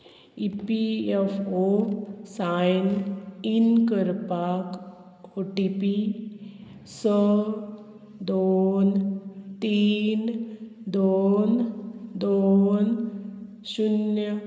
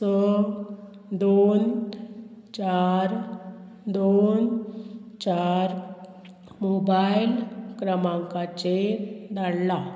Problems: constant background noise